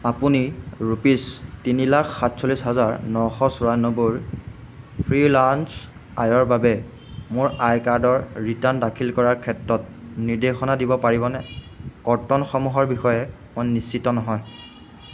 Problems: background sounds at intervals